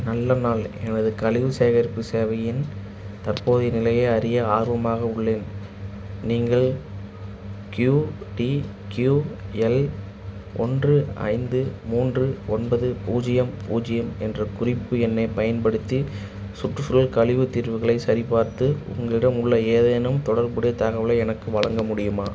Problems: none marked